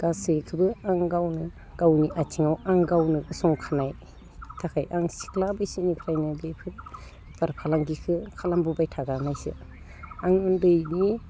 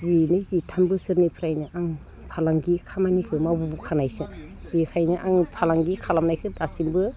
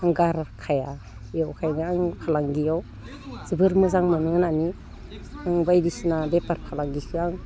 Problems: none marked